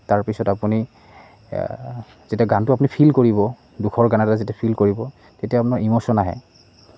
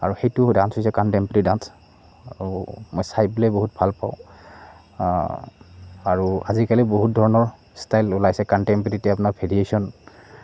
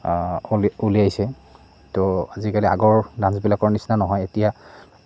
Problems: none marked